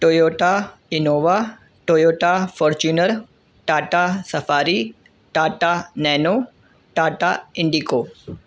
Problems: none marked